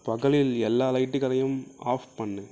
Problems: low volume